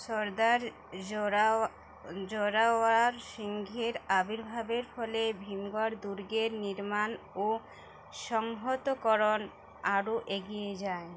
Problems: constant background noise, background conversations at intervals